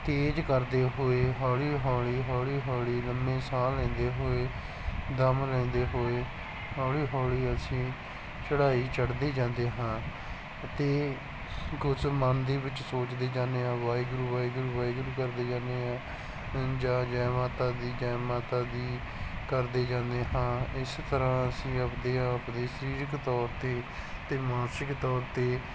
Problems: background sounds at intervals